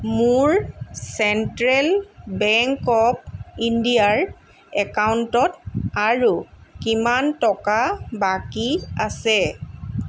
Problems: none marked